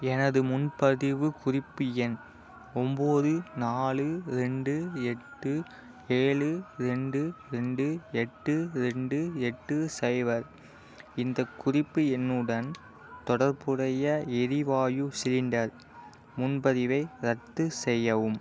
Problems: constant background noise